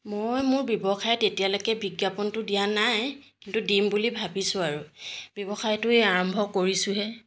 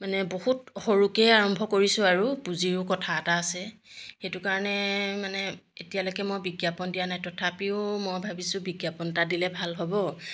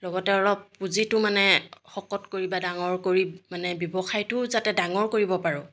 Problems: background sounds at intervals